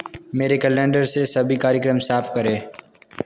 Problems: constant background noise